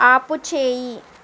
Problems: constant background noise